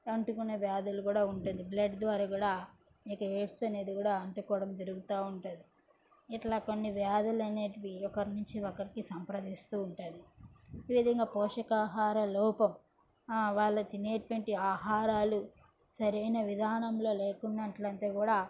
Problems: background sounds at intervals, background conversations at intervals